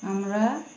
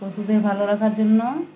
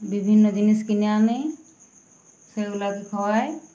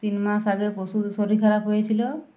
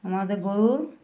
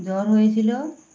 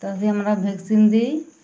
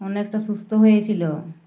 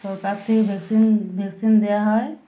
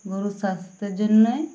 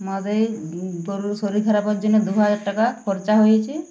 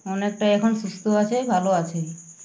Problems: none marked